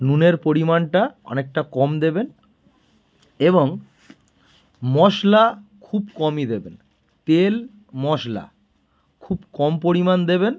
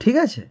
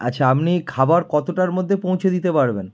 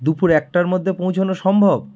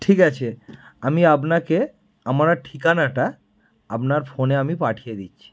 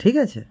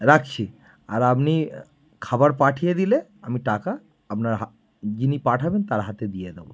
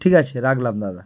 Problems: background sounds at intervals